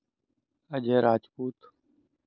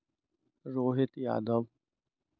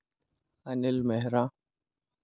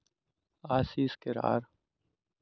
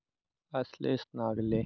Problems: constant background noise